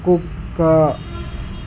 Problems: constant background noise